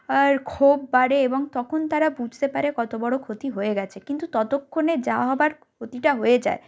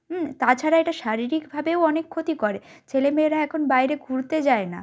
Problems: background sounds at intervals